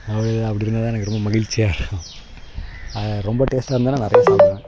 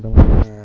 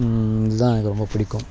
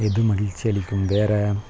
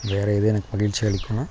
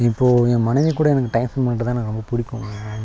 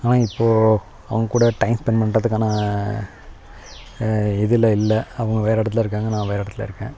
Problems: background sounds at intervals